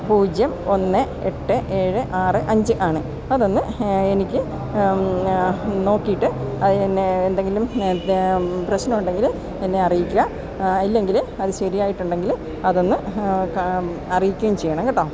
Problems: none marked